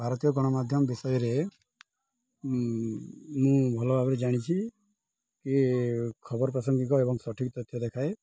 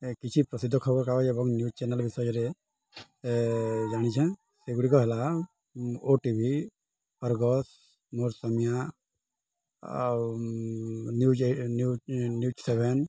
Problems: none marked